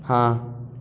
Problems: constant background noise